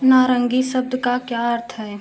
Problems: constant background noise